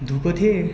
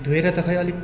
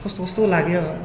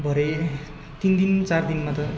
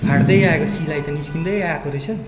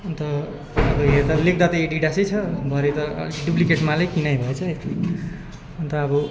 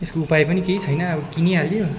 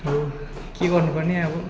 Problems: constant background noise, continuous background conversations